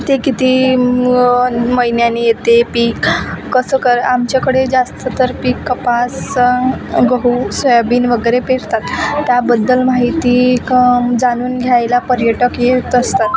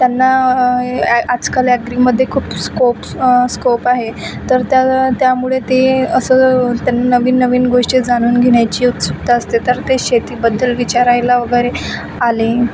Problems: constant background noise, background conversations at intervals